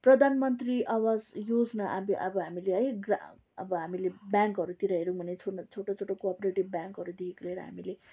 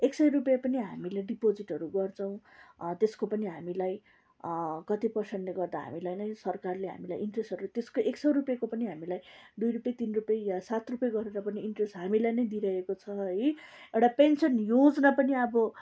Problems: background sounds at intervals